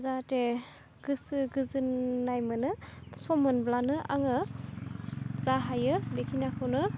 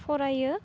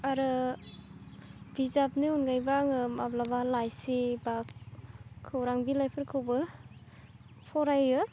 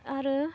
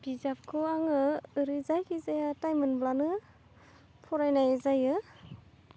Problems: constant background noise